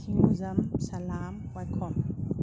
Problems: low volume